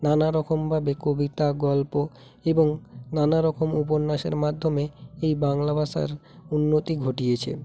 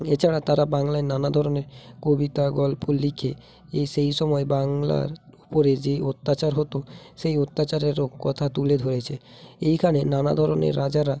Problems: background sounds at intervals